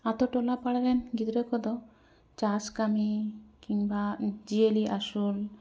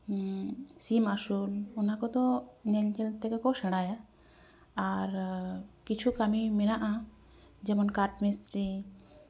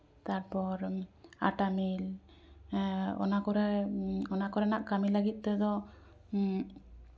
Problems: background sounds at intervals